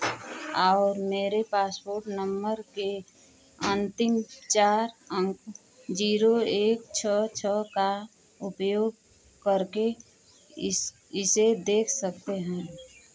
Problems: none marked